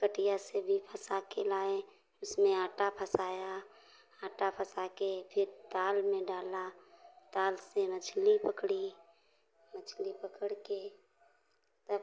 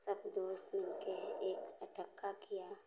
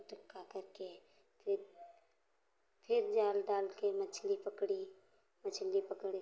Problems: background sounds at intervals